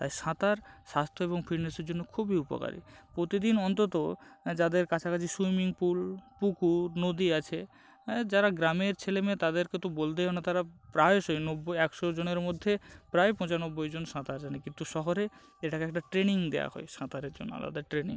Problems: none marked